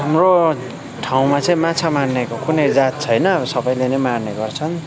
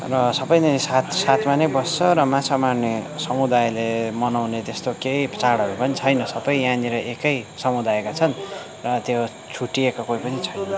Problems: continuous background conversations